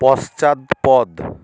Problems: constant background noise